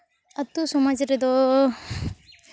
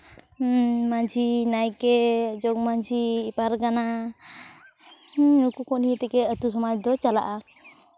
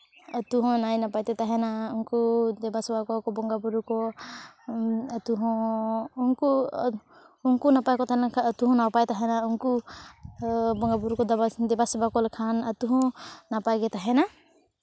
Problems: constant background noise, background conversations at intervals